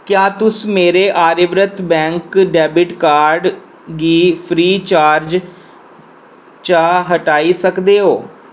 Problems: none marked